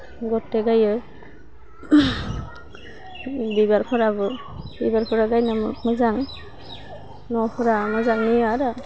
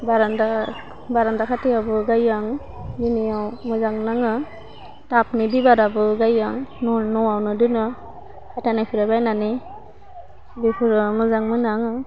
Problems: constant background noise